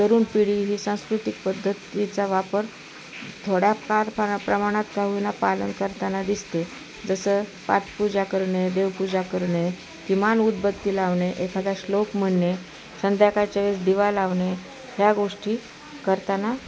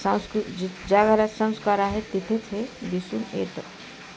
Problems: constant background noise, background conversations at intervals